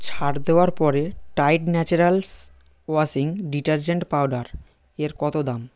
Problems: none marked